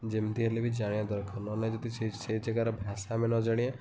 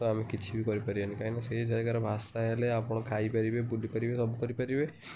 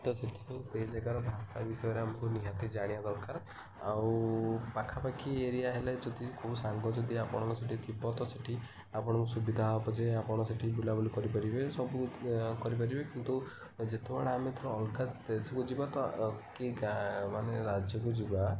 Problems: constant background noise, continuous background conversations